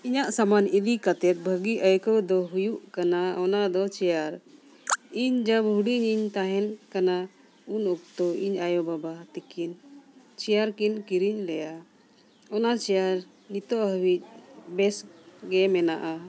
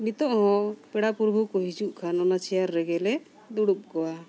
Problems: constant background noise